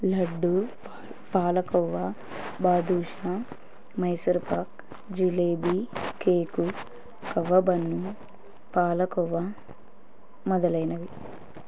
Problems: background sounds at intervals